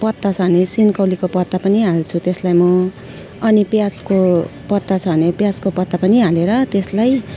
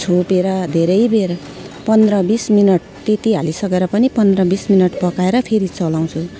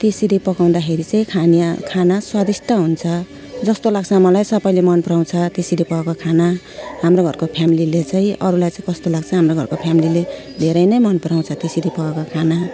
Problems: background sounds at intervals